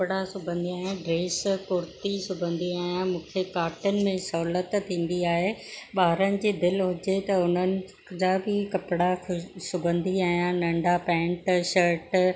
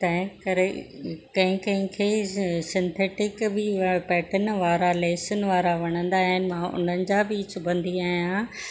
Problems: none marked